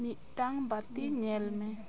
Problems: constant background noise, background conversations at intervals